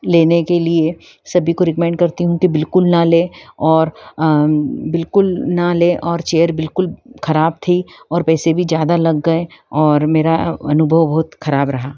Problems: background sounds at intervals